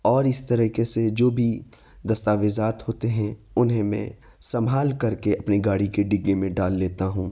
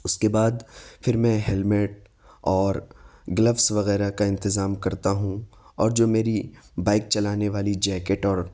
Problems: none marked